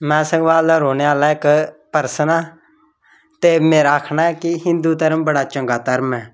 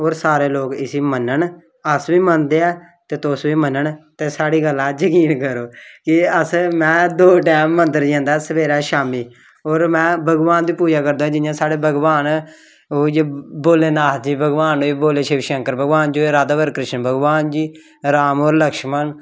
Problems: background sounds at intervals